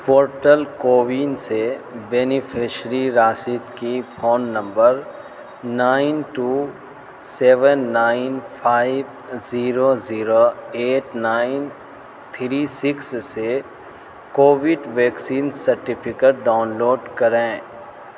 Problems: constant background noise